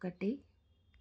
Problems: low volume